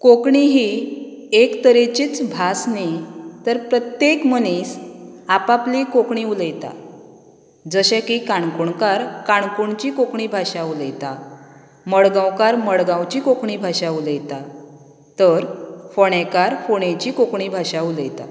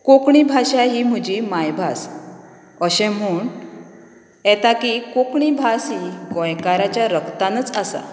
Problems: background sounds at intervals